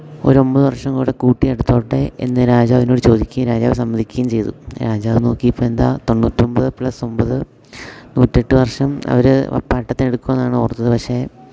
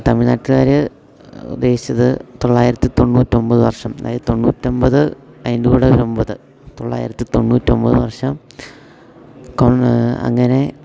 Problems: background sounds at intervals